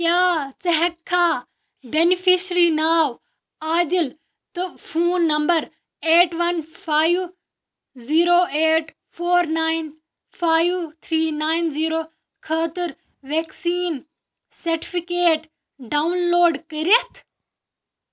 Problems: background sounds at intervals